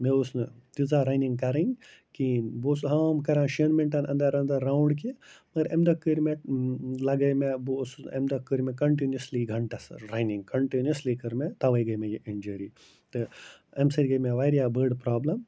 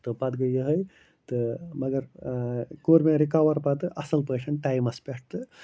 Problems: constant background noise